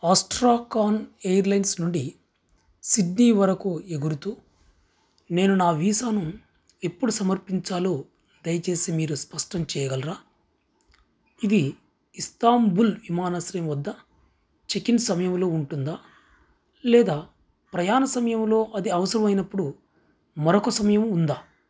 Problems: background sounds at intervals